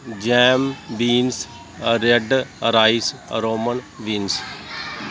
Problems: constant background noise